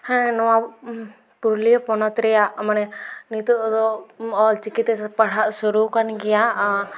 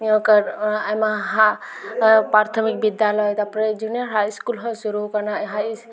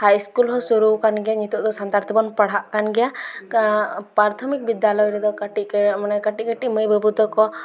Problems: background sounds at intervals